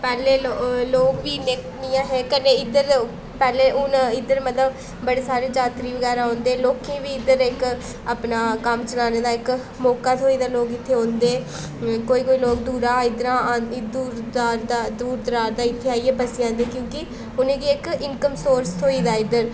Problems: constant background noise